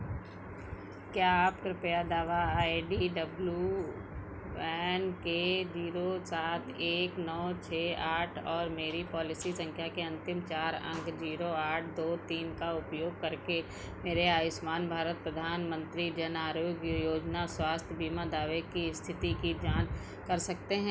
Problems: background sounds at intervals